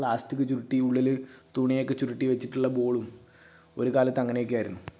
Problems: none marked